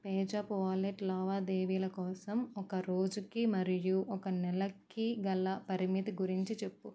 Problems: none marked